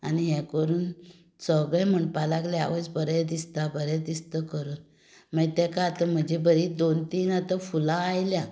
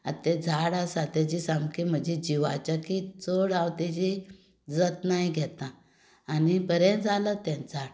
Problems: background sounds at intervals